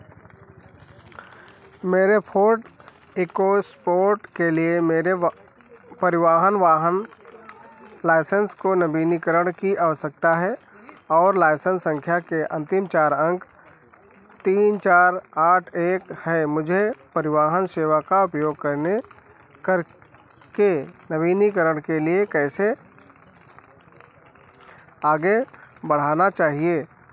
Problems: constant background noise